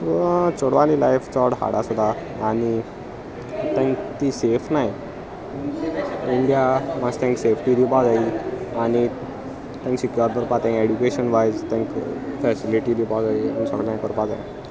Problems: constant background noise, continuous background conversations